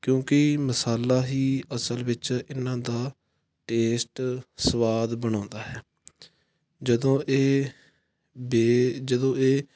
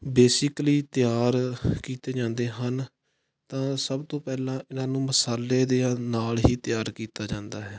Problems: background sounds at intervals